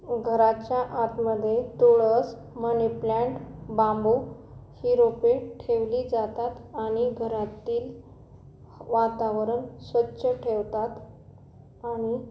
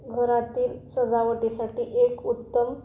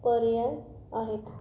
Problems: none marked